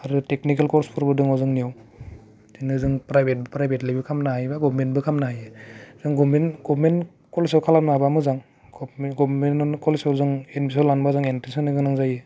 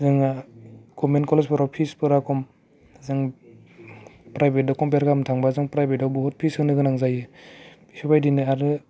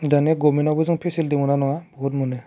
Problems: none marked